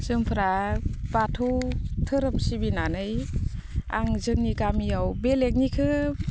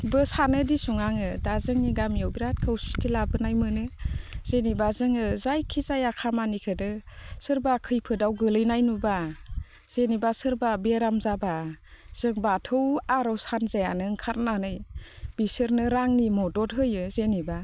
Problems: constant background noise